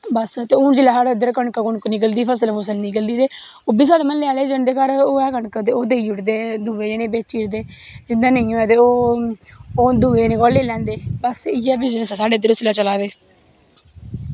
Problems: background sounds at intervals